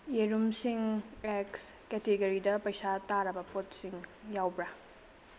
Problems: constant background noise, low volume